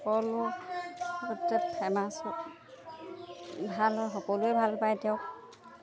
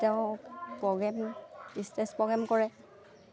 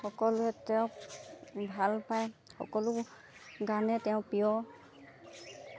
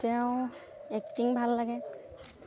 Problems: background sounds at intervals